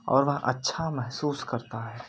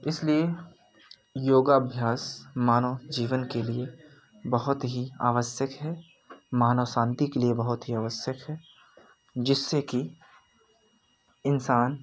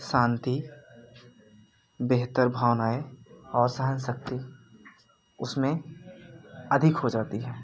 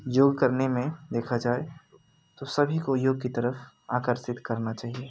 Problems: none marked